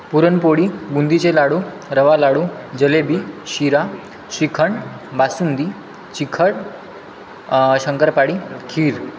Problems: constant background noise, background conversations at intervals